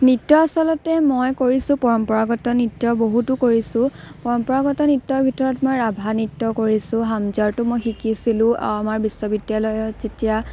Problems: none marked